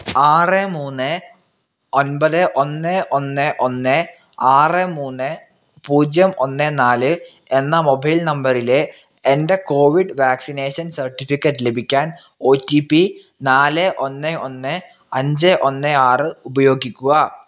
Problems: none marked